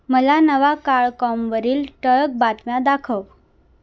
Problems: none marked